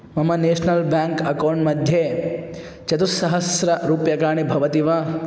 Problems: constant background noise